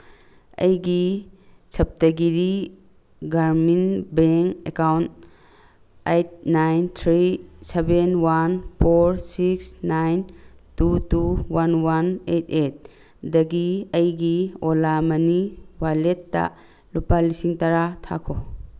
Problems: background sounds at intervals